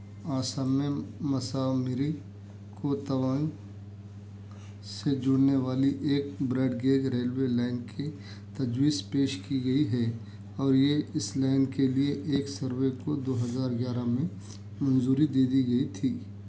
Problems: none marked